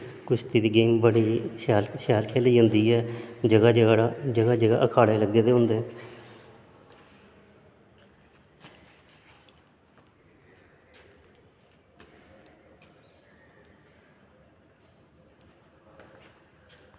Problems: constant background noise, echo